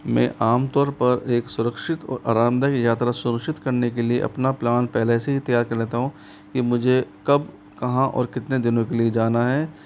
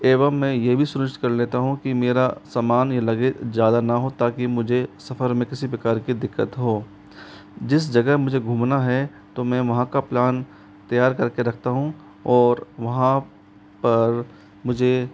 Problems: constant background noise